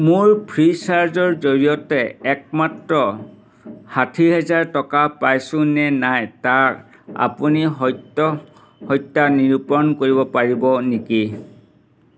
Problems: constant background noise